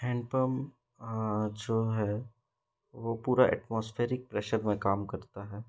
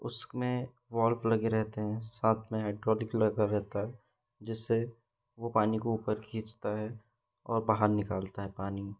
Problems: none marked